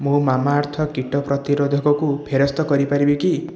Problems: constant background noise, continuous background conversations